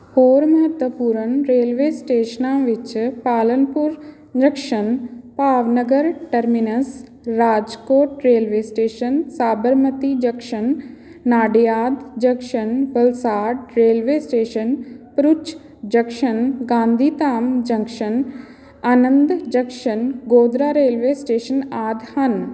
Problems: background conversations at intervals